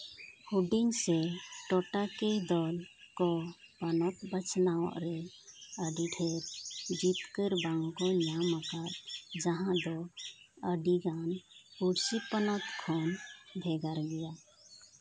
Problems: background sounds at intervals